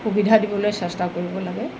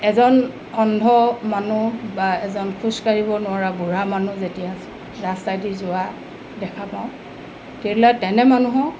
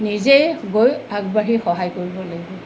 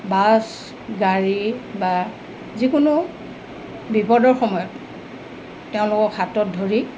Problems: constant background noise